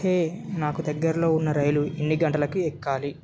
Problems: background sounds at intervals